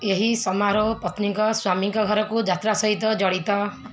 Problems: none marked